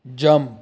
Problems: constant background noise